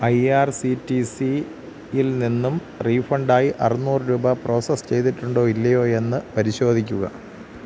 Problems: constant background noise